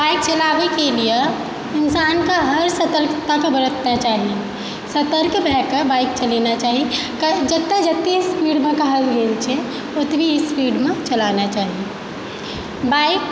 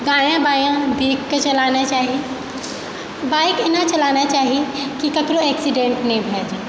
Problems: background sounds at intervals